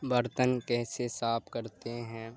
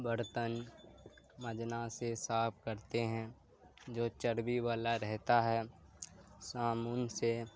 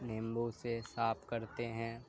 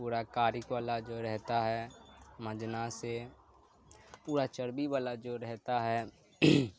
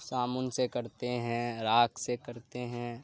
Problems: constant background noise